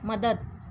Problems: background sounds at intervals